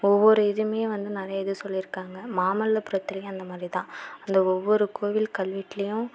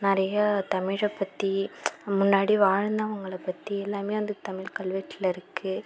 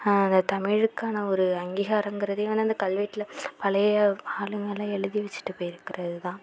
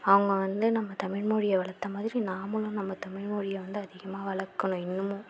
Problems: constant background noise